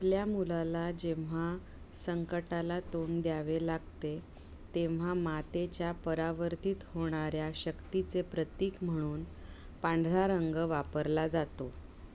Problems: constant background noise